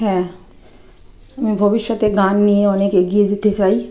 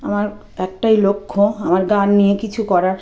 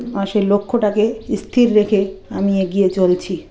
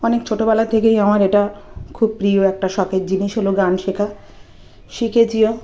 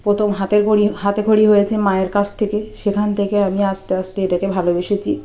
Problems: background sounds at intervals